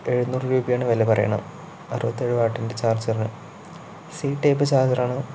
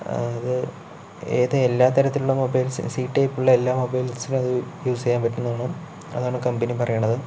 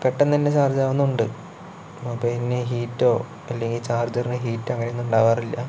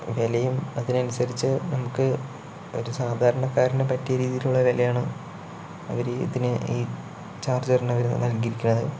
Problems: constant background noise